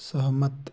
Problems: none marked